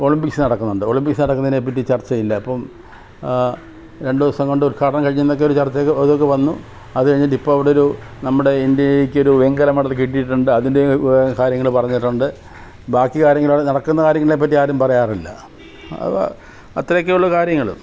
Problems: background sounds at intervals